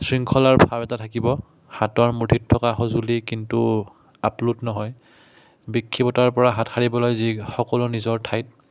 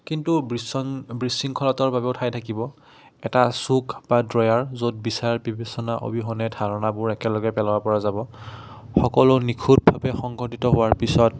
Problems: background sounds at intervals